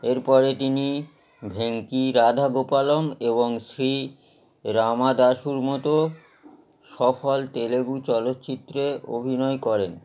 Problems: background conversations at intervals